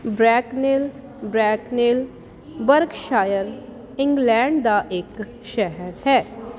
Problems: constant background noise